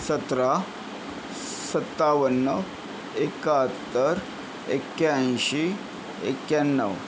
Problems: constant background noise